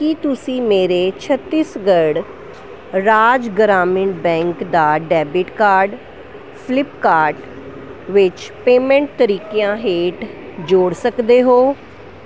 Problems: constant background noise